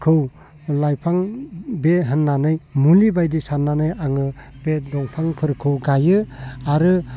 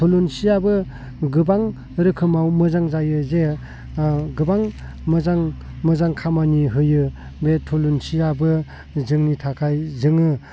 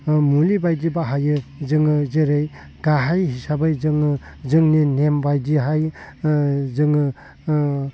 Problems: low volume